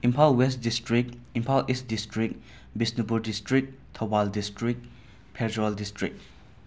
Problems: none marked